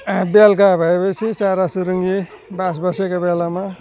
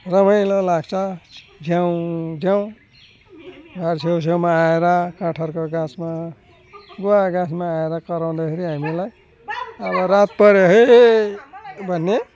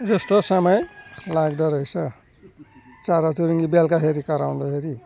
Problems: none marked